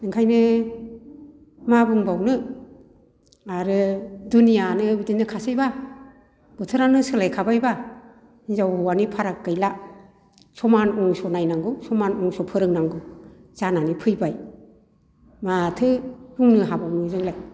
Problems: none marked